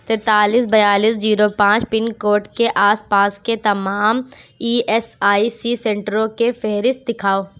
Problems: none marked